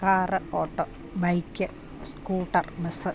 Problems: none marked